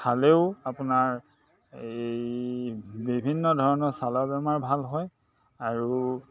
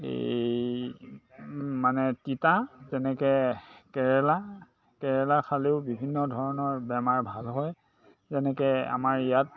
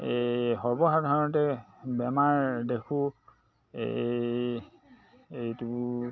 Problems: constant background noise, background conversations at intervals